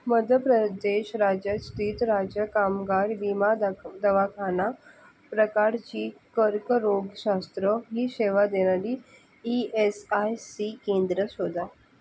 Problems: background sounds at intervals